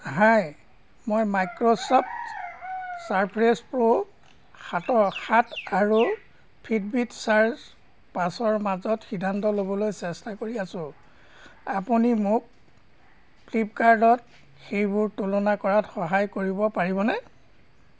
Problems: background sounds at intervals